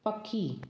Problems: echo